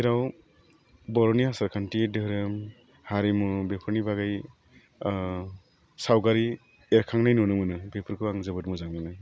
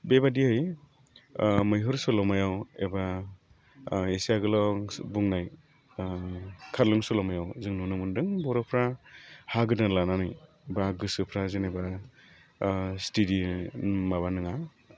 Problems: low volume